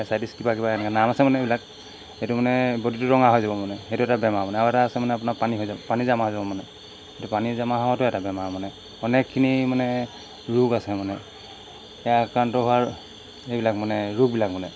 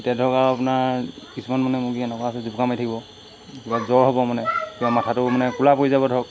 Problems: constant background noise